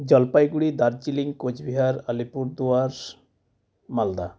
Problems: none marked